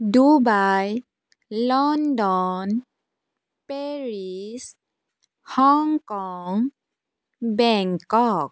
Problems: none marked